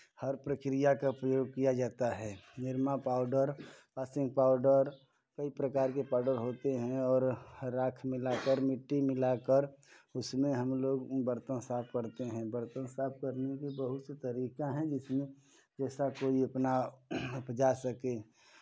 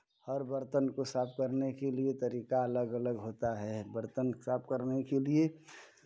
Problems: none marked